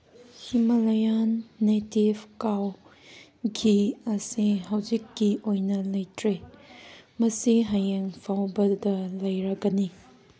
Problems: none marked